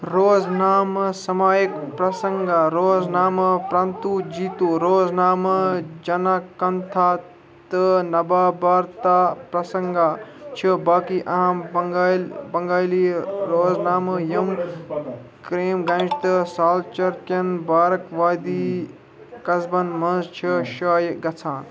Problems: constant background noise, continuous background conversations